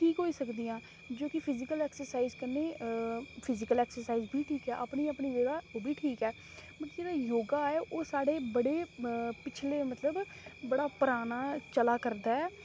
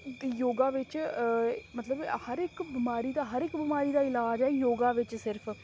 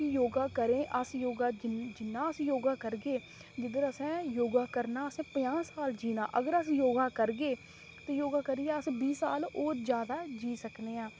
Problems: constant background noise